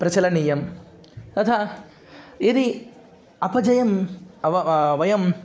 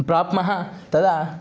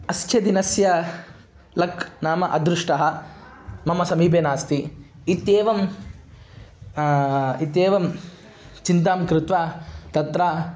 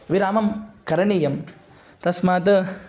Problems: background sounds at intervals